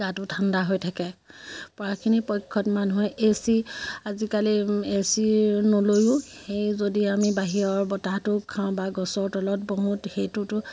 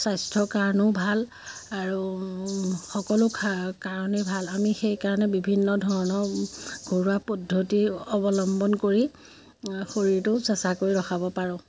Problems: constant background noise